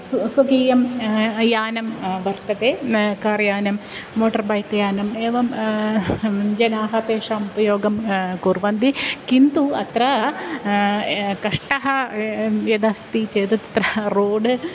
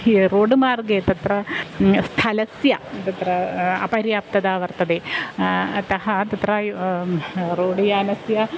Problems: constant background noise